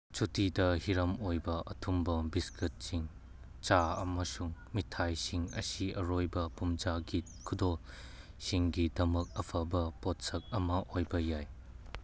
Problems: none marked